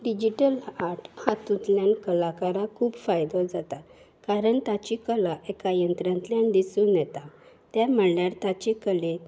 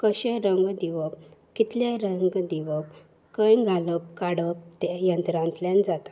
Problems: none marked